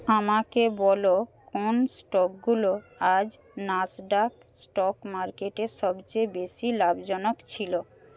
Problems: background conversations at intervals